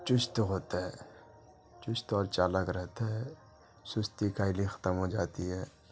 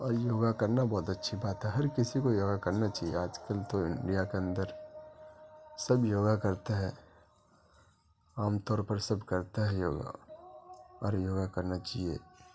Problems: background sounds at intervals, low volume